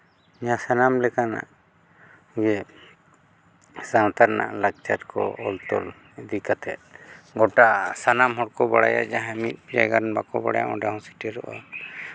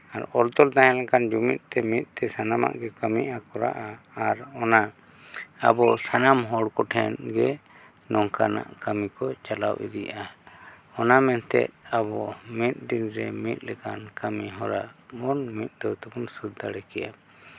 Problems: background sounds at intervals